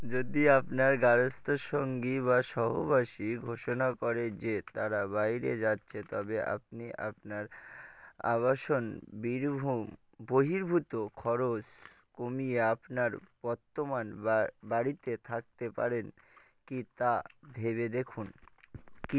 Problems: none marked